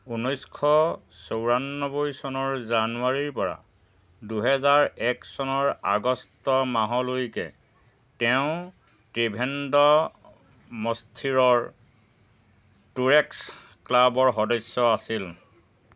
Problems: constant background noise, background conversations at intervals